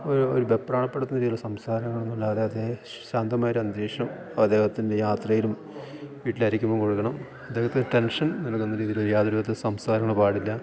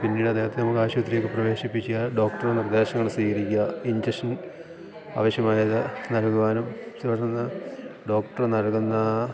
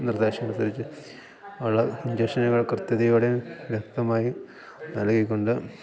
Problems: background sounds at intervals, low volume